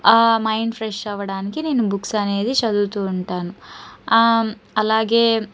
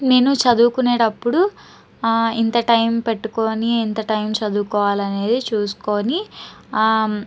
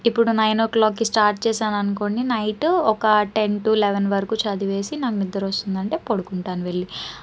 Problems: background sounds at intervals